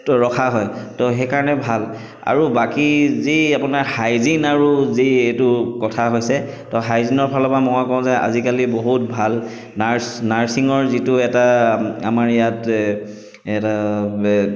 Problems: echo